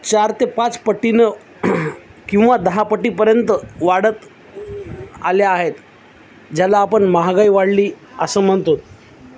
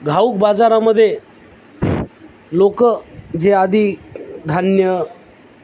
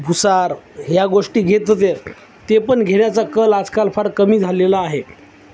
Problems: constant background noise